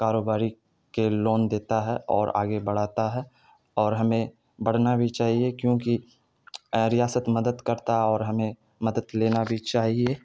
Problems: none marked